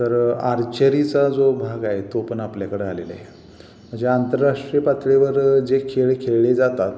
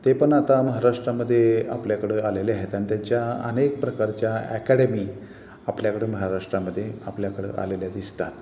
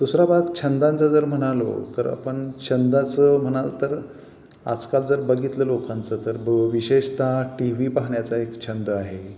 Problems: constant background noise, background conversations at intervals